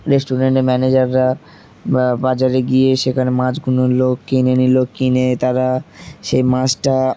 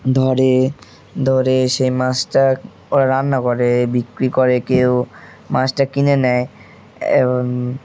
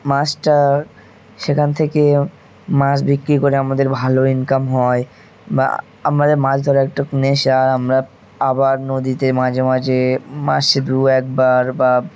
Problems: constant background noise, background conversations at intervals